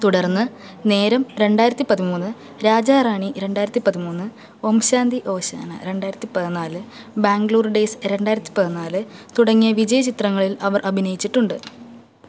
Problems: none marked